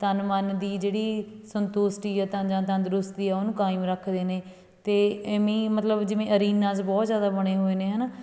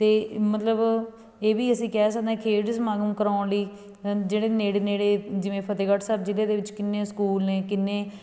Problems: background conversations at intervals